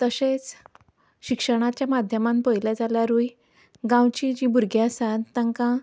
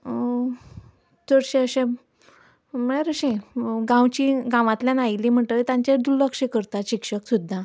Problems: background sounds at intervals